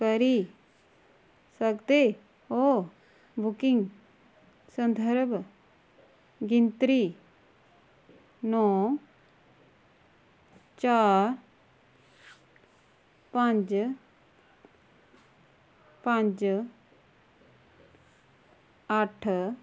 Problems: low volume